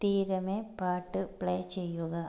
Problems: none marked